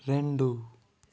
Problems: none marked